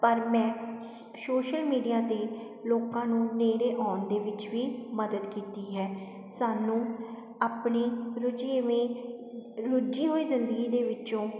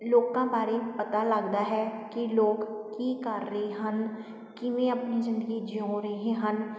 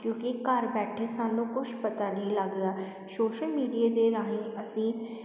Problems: constant background noise